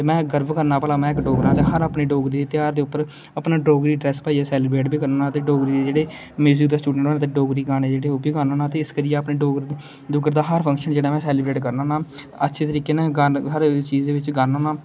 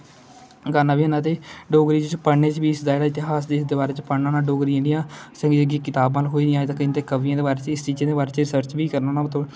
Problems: constant background noise